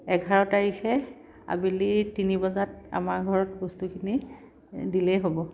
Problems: background sounds at intervals